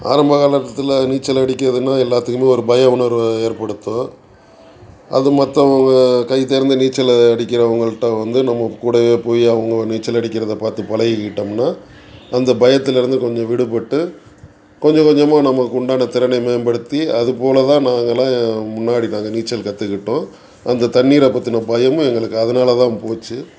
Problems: background sounds at intervals